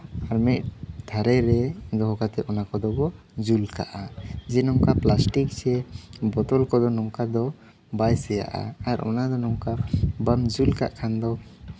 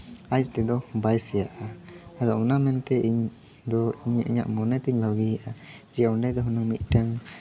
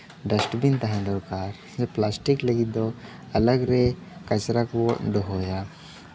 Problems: background sounds at intervals, background conversations at intervals